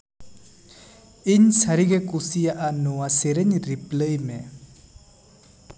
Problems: constant background noise, echo